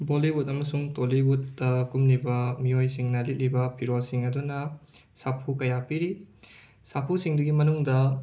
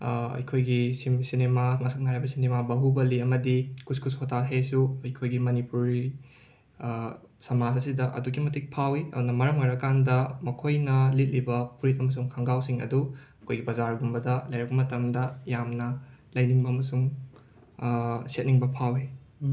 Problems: background sounds at intervals